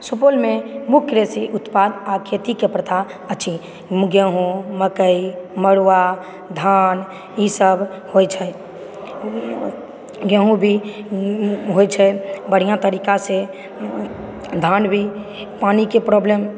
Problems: background sounds at intervals, background conversations at intervals